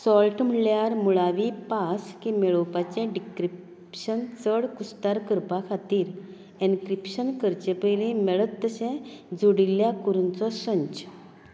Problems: none marked